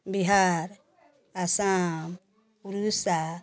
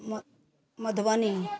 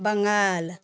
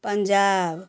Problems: none marked